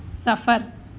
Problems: none marked